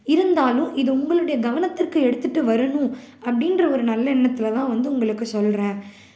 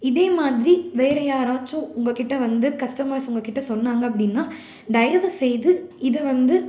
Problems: none marked